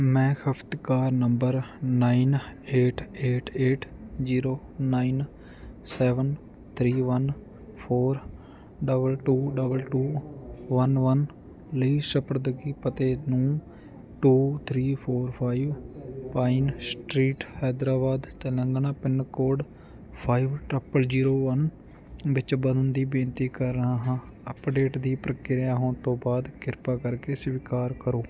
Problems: background sounds at intervals